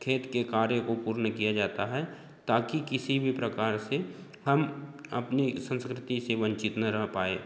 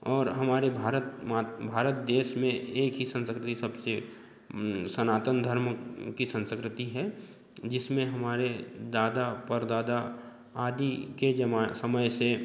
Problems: constant background noise, background conversations at intervals